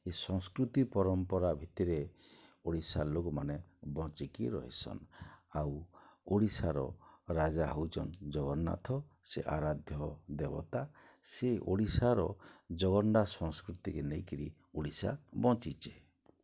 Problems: low volume